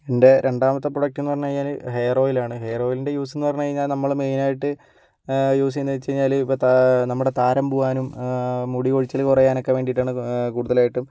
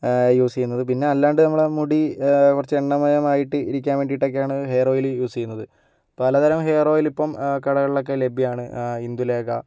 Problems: none marked